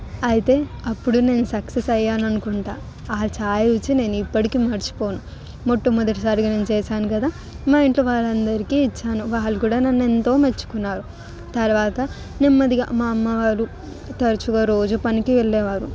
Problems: background sounds at intervals, continuous background conversations